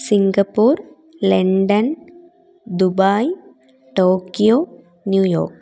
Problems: none marked